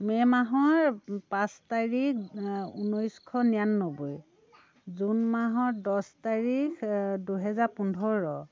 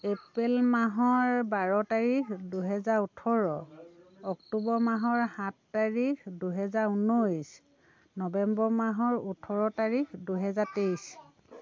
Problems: constant background noise, continuous background conversations